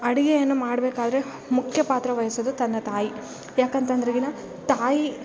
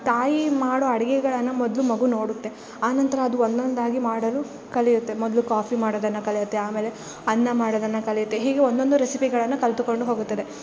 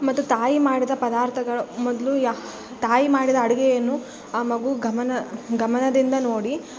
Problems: background sounds at intervals